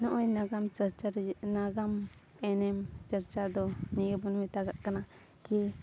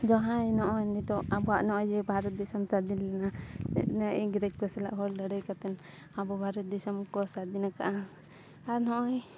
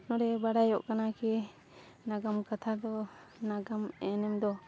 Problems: constant background noise